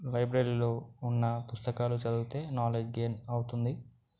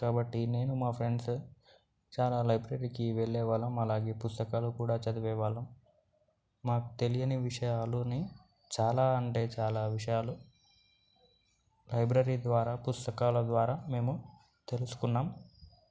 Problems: none marked